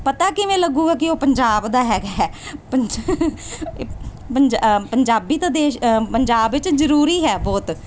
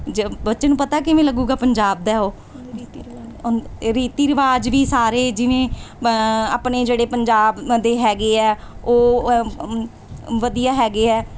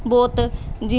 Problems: background conversations at intervals